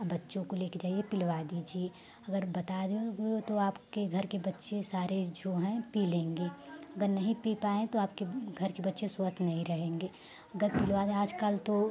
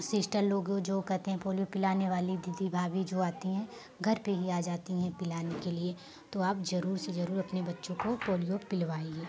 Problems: constant background noise